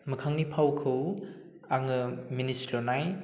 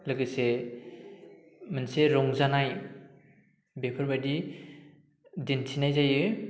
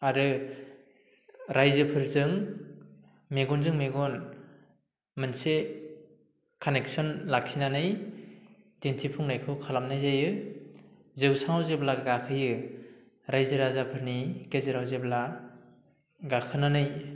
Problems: low volume